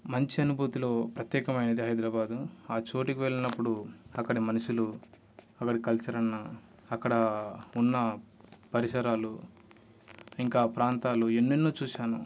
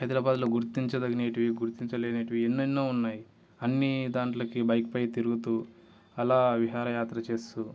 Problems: background sounds at intervals